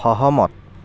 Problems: background conversations at intervals